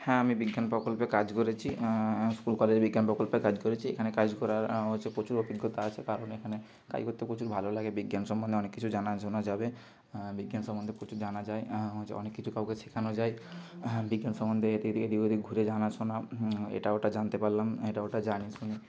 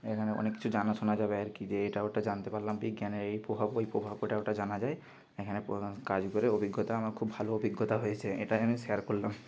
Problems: constant background noise